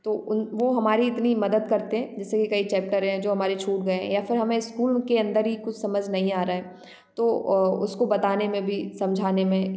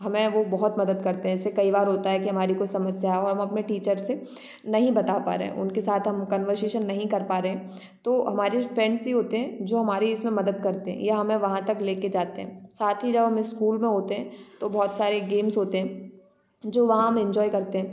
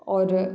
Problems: background sounds at intervals